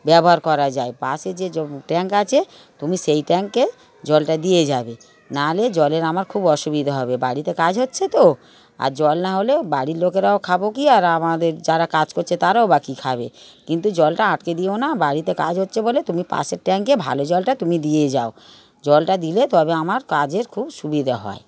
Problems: continuous background conversations